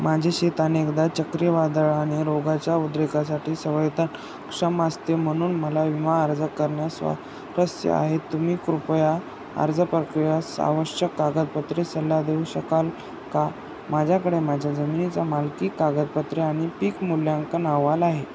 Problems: constant background noise